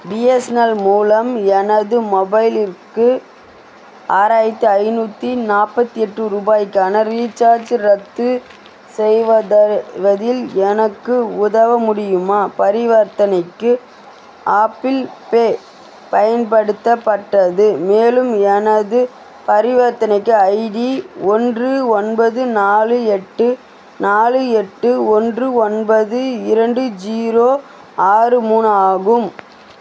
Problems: constant background noise